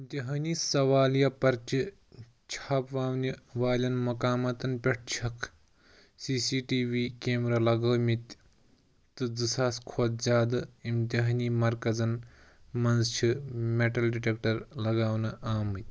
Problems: background sounds at intervals